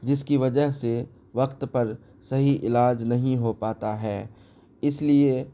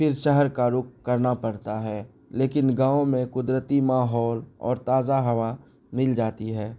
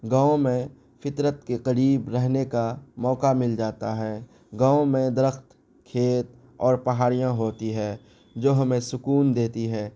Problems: none marked